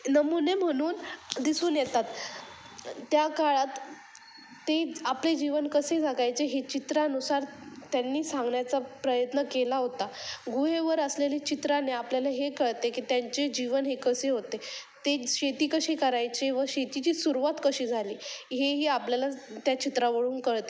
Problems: constant background noise, background conversations at intervals